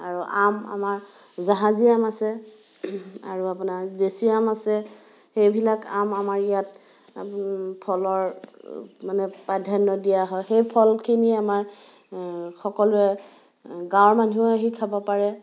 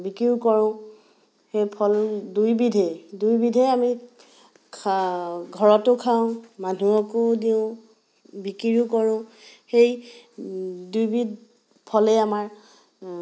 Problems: none marked